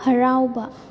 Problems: background sounds at intervals